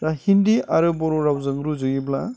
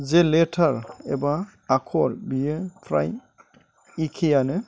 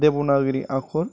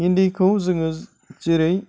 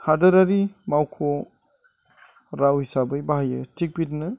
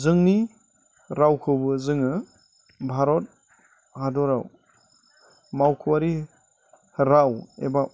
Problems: constant background noise